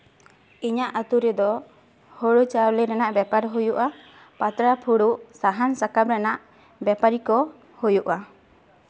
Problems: none marked